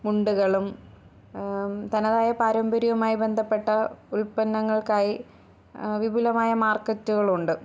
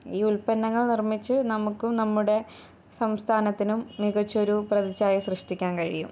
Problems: none marked